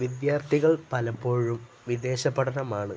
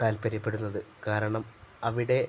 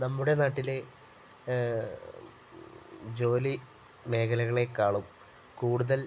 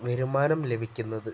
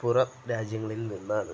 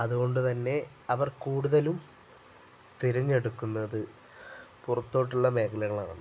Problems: none marked